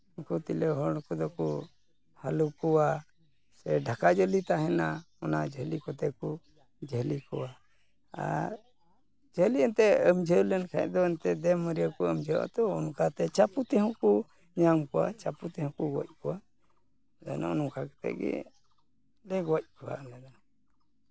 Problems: none marked